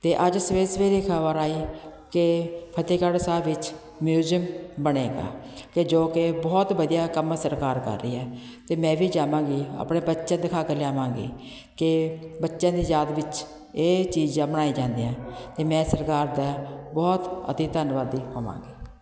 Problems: none marked